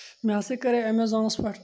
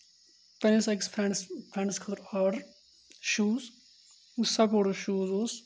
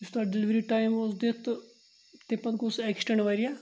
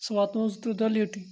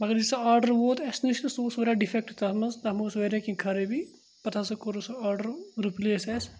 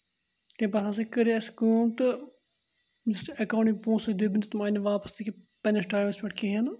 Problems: constant background noise